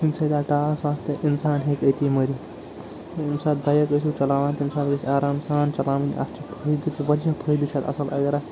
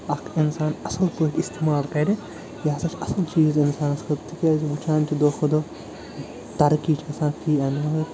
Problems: constant background noise